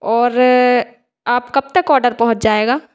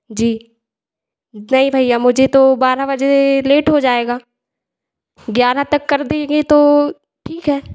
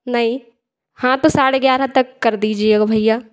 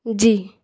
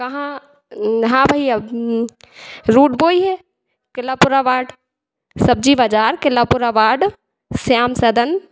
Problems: background sounds at intervals, echo